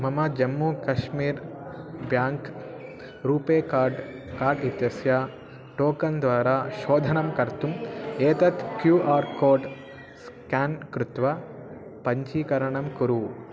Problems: constant background noise